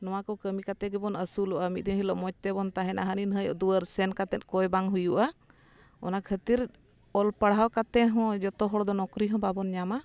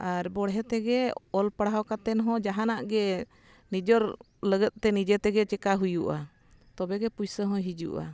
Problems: none marked